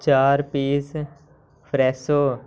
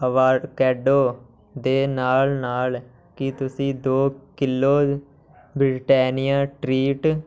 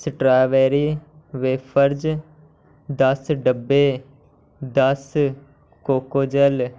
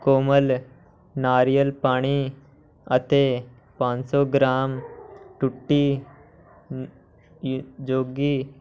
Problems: constant background noise